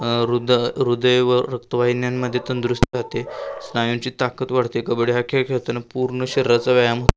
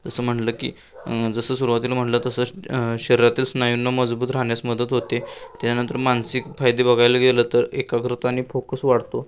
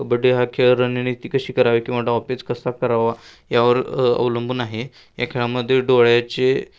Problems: constant background noise